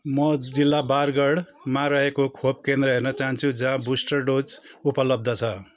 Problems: background sounds at intervals